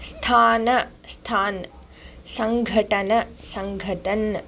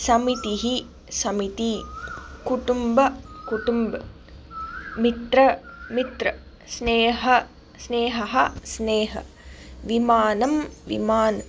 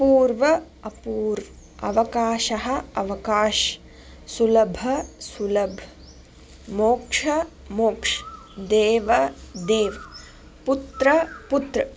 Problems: background sounds at intervals